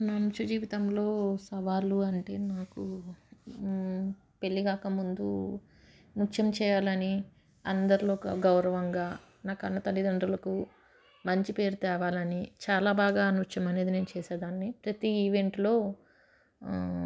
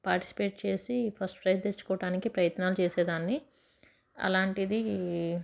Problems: none marked